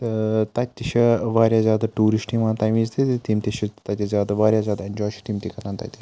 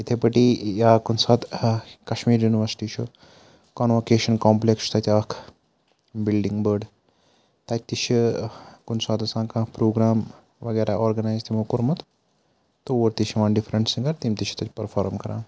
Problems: none marked